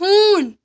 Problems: background sounds at intervals